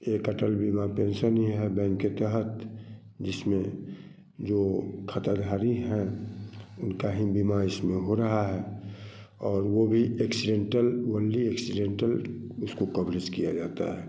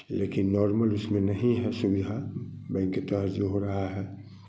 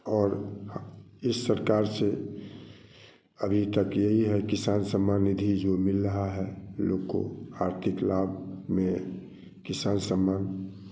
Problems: none marked